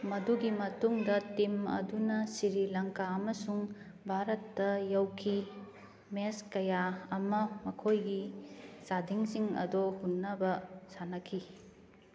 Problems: background sounds at intervals